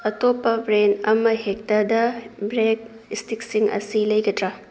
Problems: none marked